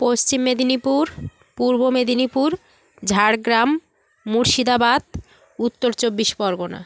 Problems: constant background noise, background conversations at intervals